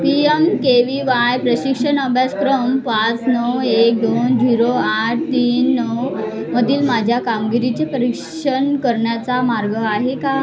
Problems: continuous background conversations